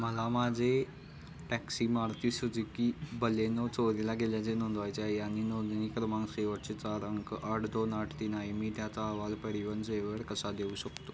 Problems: none marked